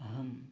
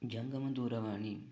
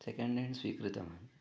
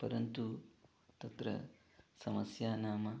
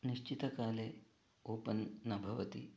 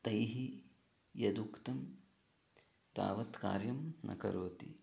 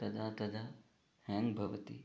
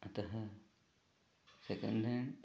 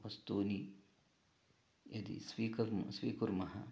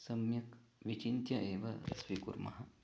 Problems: low volume